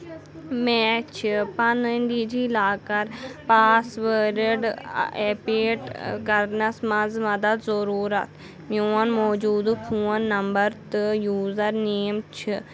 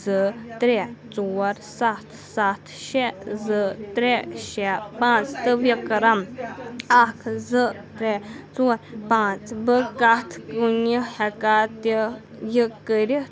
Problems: constant background noise